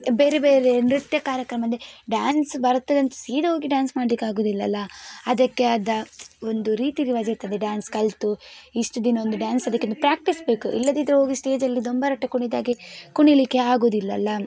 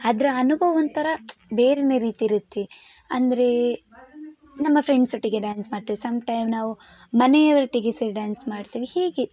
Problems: none marked